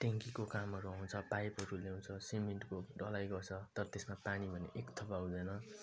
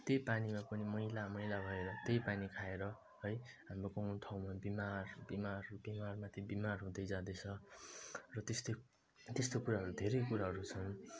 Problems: low volume